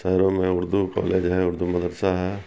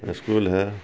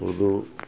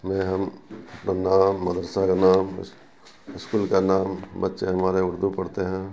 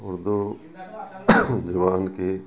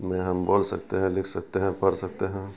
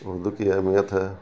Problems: constant background noise, low volume